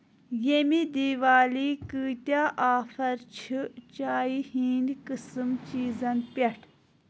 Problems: none marked